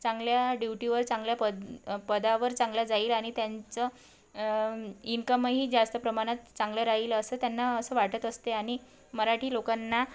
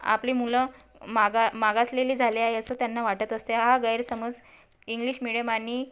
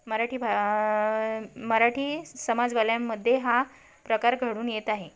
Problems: background sounds at intervals